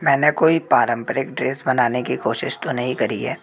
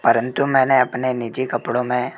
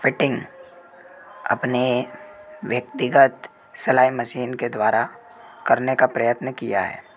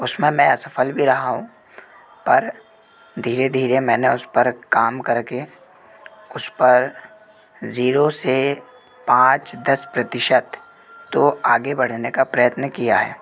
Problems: constant background noise